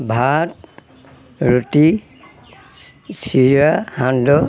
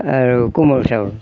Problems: constant background noise, background conversations at intervals